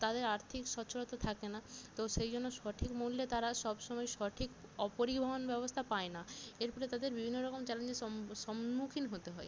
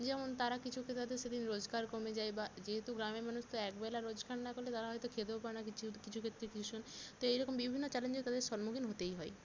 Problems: none marked